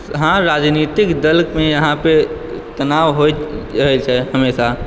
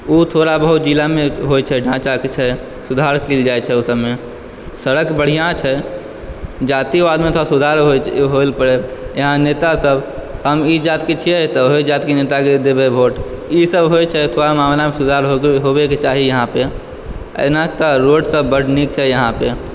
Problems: background sounds at intervals